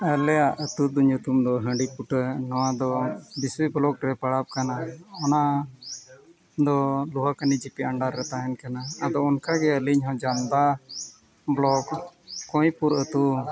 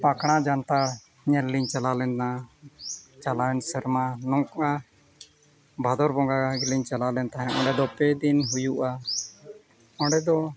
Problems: background sounds at intervals